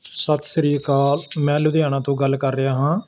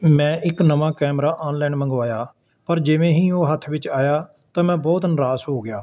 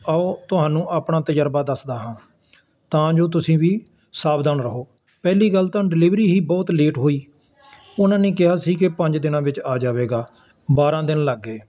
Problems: constant background noise